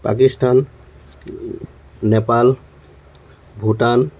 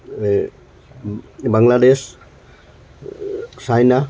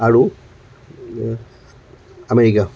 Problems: none marked